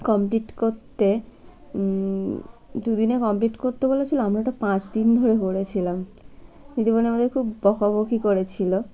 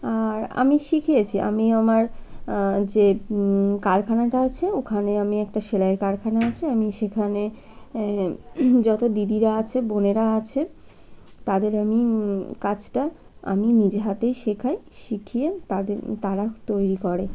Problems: constant background noise